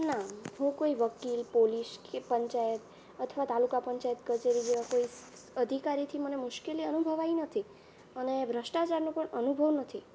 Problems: low volume